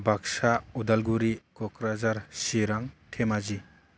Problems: constant background noise